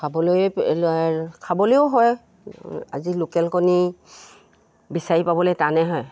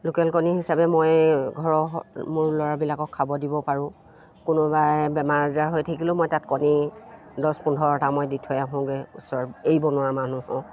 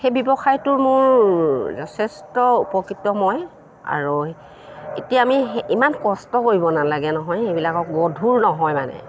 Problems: none marked